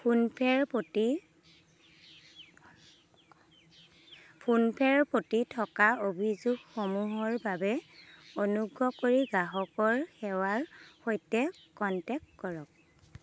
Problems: constant background noise